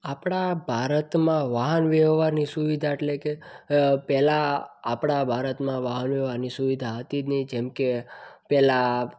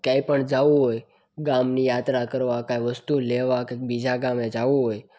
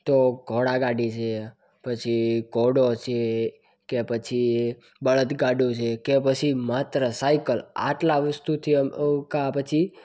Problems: none marked